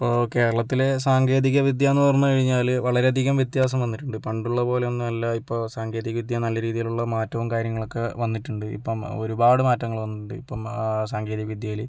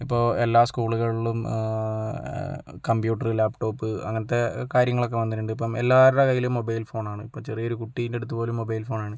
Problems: none marked